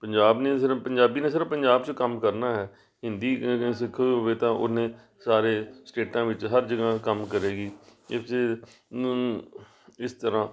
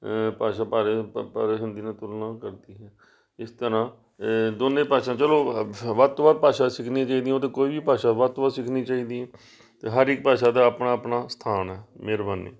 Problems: background sounds at intervals